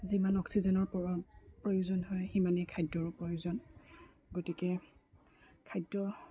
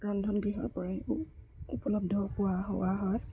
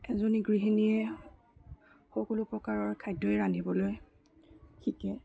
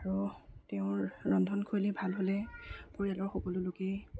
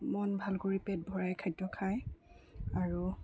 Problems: low volume